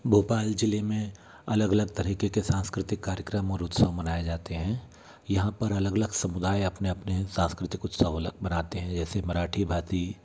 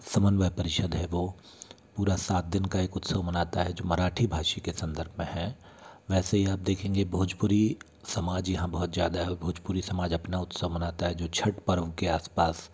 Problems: none marked